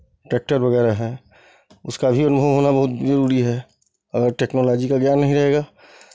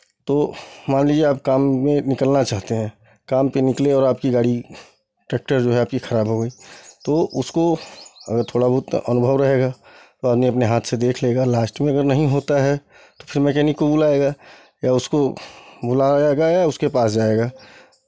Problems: constant background noise